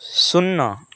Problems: constant background noise